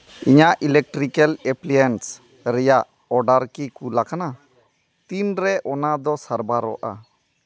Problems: background conversations at intervals